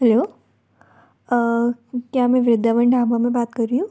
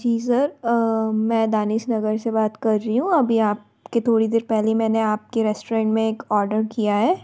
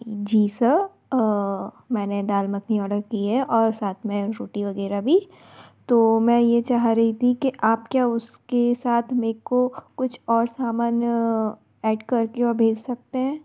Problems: background sounds at intervals